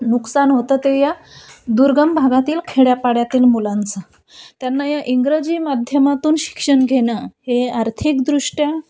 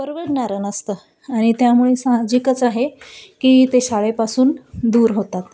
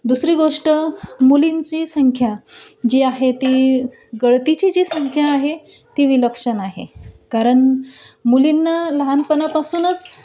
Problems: background sounds at intervals